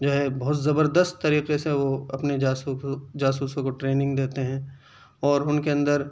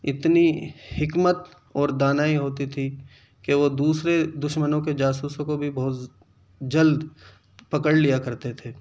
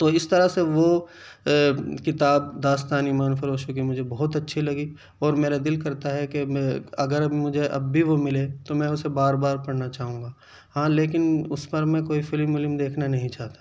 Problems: none marked